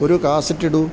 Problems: none marked